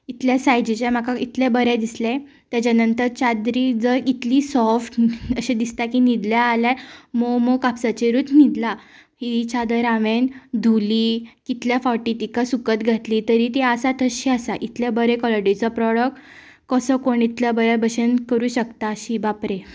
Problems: background sounds at intervals, background conversations at intervals